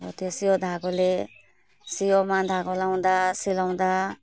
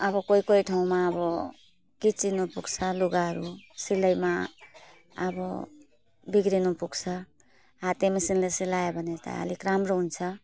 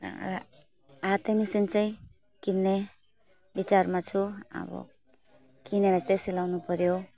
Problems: none marked